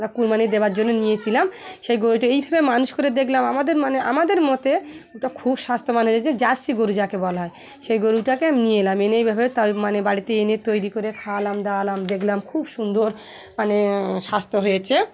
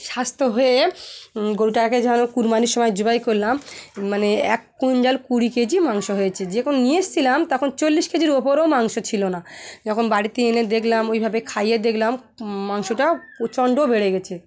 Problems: constant background noise, continuous background conversations